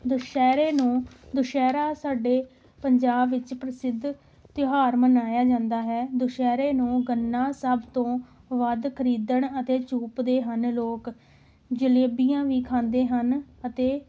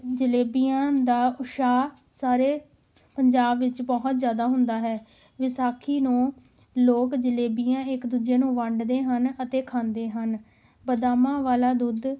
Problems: none marked